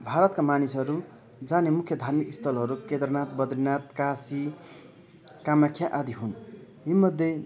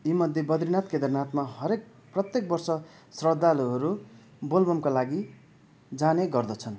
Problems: none marked